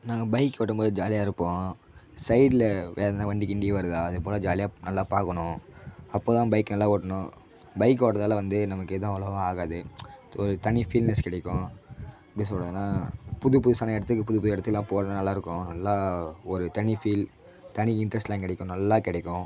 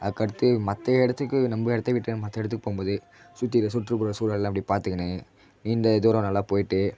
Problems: constant background noise